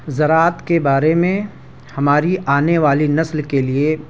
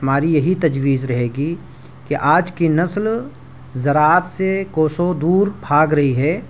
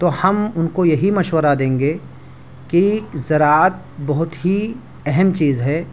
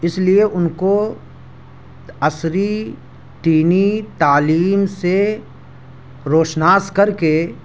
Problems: none marked